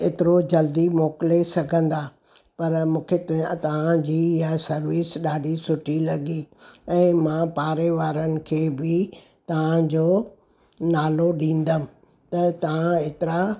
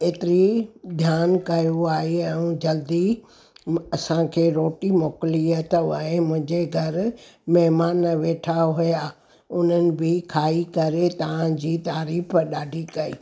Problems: none marked